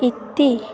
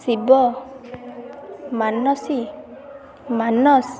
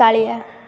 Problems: constant background noise, continuous background conversations